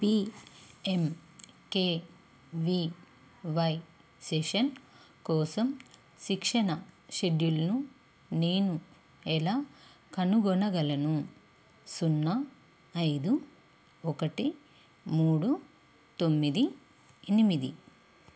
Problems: constant background noise